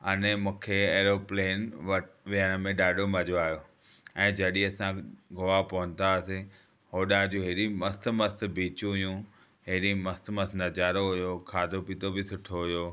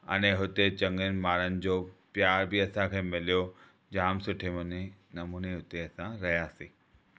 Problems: background sounds at intervals